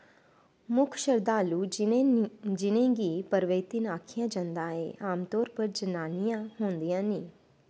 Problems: constant background noise